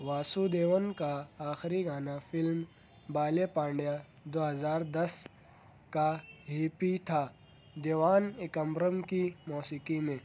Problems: none marked